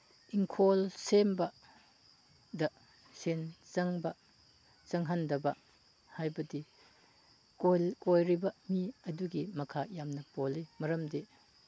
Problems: background sounds at intervals, background conversations at intervals